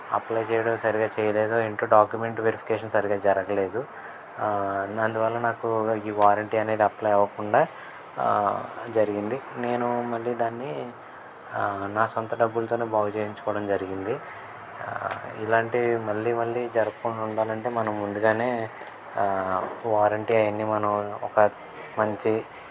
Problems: background sounds at intervals, background conversations at intervals